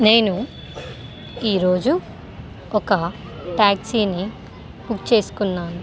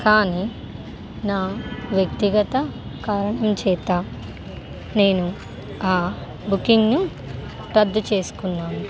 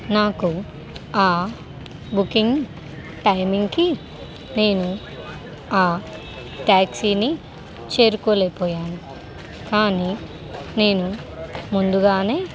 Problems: constant background noise